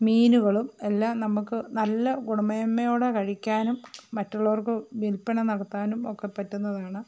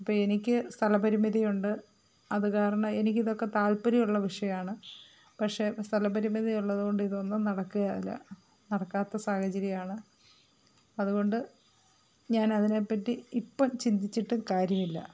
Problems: none marked